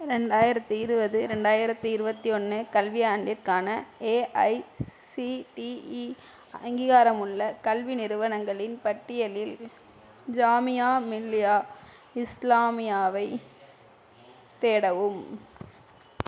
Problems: none marked